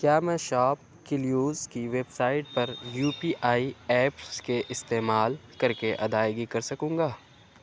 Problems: low volume